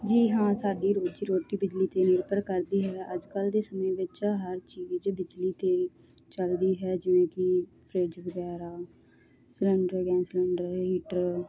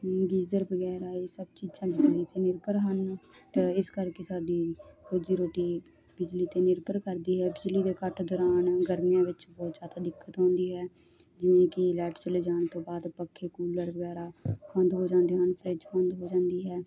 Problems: none marked